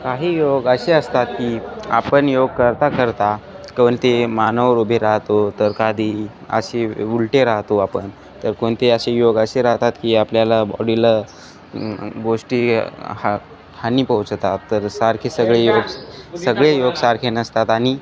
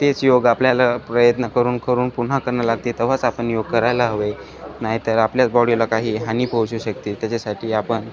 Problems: background conversations at intervals